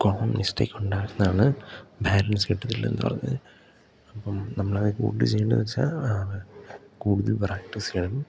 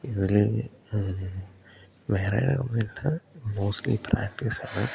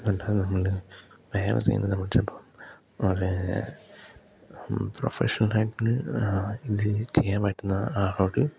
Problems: background sounds at intervals, low volume